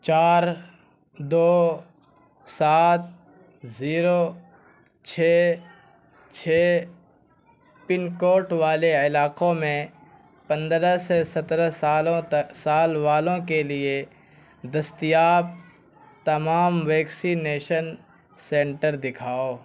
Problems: constant background noise